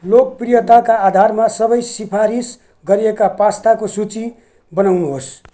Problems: background sounds at intervals